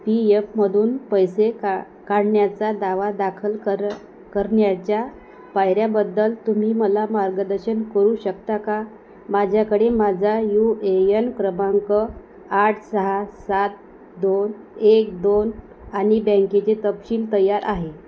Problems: none marked